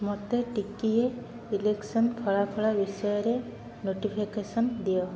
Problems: constant background noise